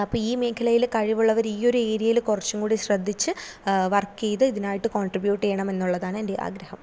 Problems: none marked